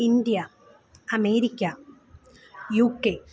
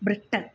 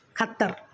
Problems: background sounds at intervals